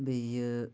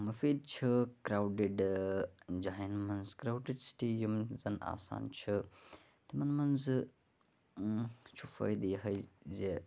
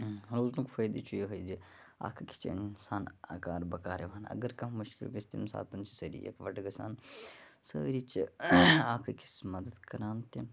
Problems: background sounds at intervals, low volume